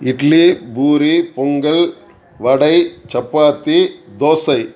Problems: background sounds at intervals